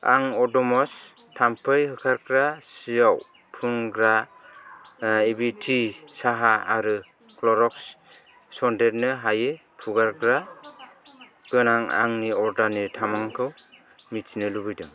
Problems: none marked